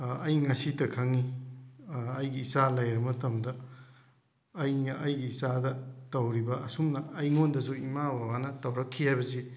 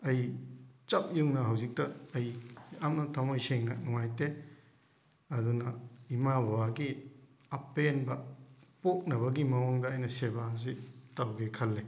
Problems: background sounds at intervals